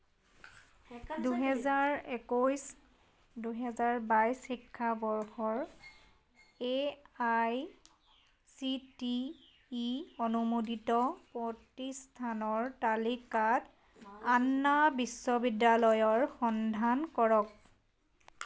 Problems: background sounds at intervals